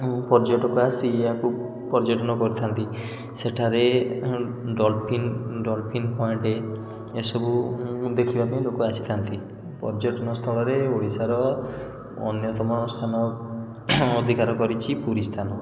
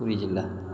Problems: none marked